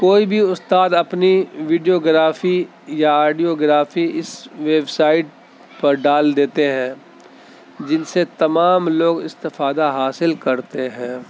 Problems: constant background noise, background conversations at intervals